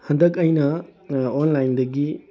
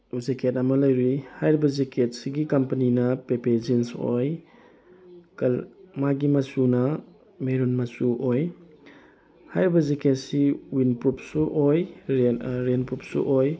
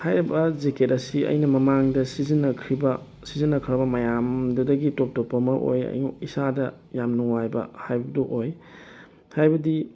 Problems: none marked